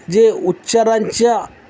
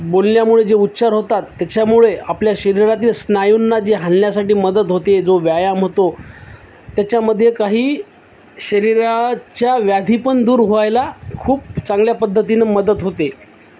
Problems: constant background noise